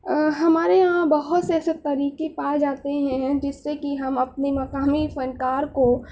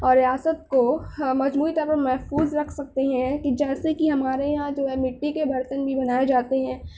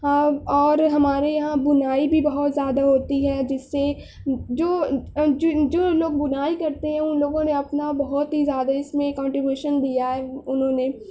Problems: none marked